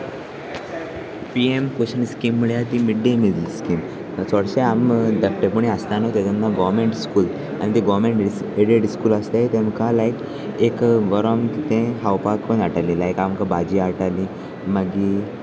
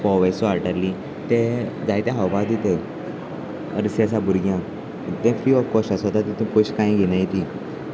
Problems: constant background noise, continuous background conversations